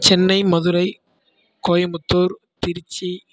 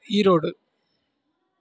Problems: none marked